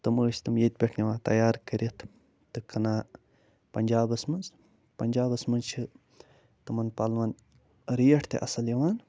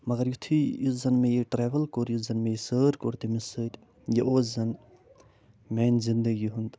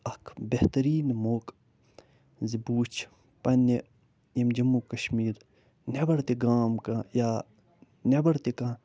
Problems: none marked